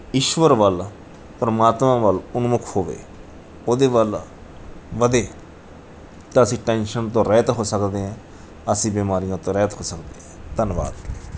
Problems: background sounds at intervals